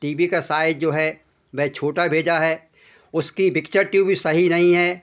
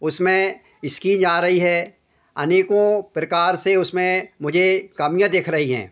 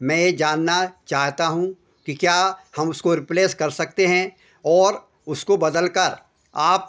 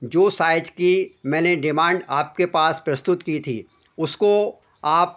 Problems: constant background noise